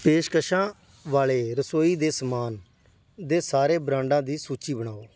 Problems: none marked